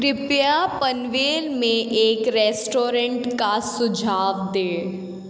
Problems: background sounds at intervals, echo